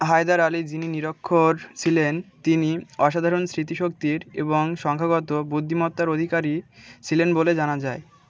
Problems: continuous background conversations